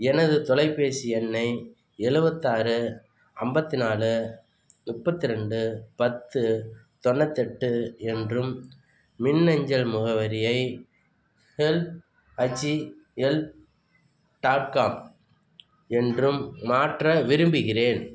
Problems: background sounds at intervals